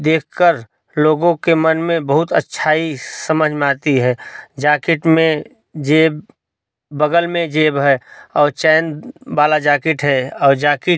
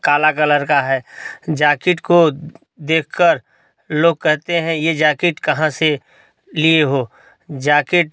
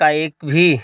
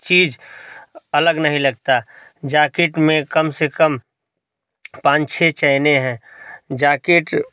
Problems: none marked